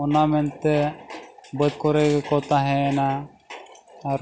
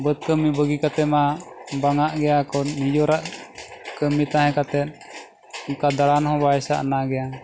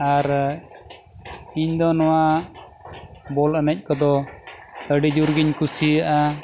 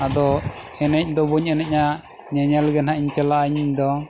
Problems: constant background noise